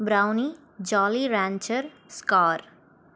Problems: background sounds at intervals